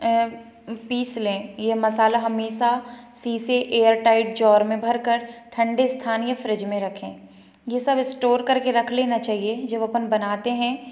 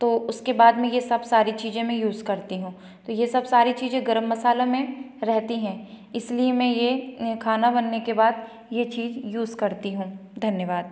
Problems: none marked